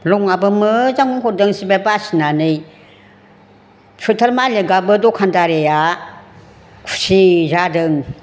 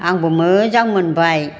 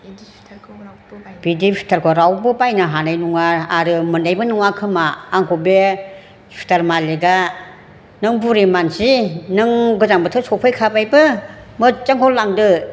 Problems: none marked